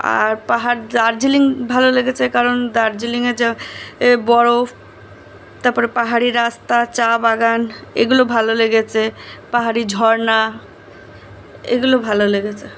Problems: background sounds at intervals